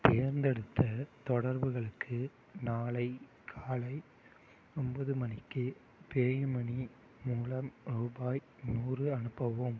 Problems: low volume